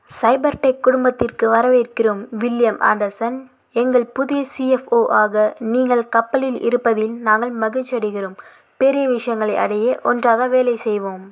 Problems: none marked